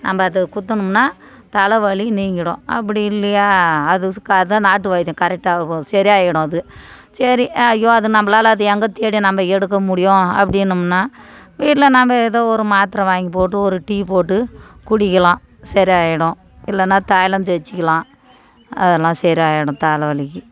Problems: none marked